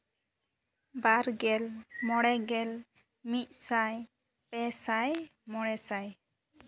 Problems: background sounds at intervals, low volume